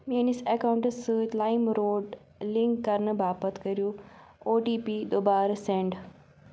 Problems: background sounds at intervals